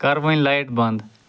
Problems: none marked